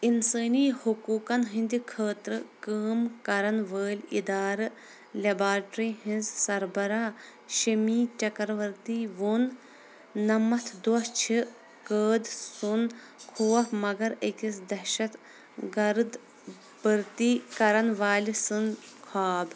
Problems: constant background noise